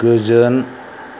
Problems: constant background noise